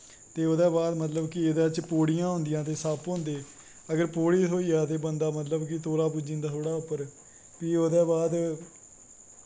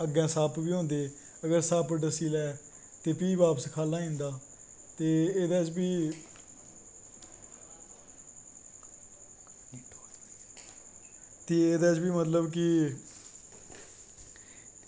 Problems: constant background noise